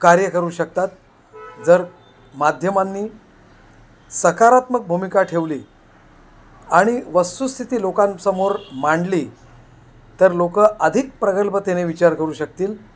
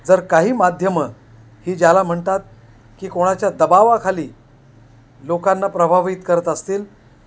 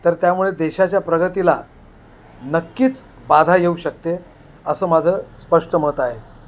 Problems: constant background noise